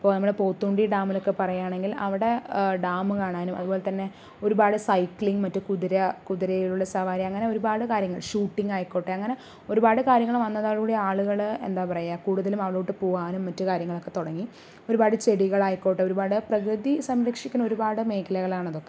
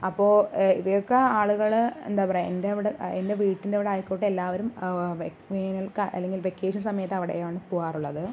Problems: none marked